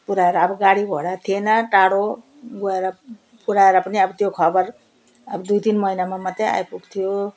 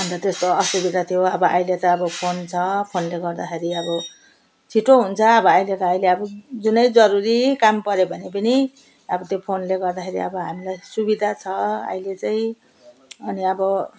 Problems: background sounds at intervals